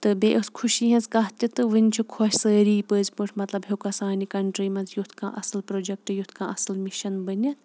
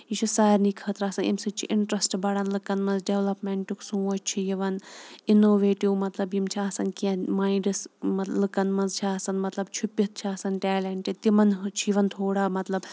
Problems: none marked